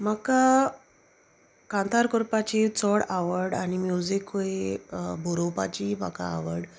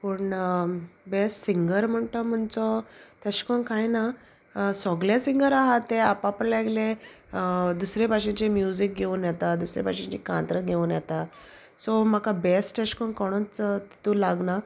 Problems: constant background noise, background conversations at intervals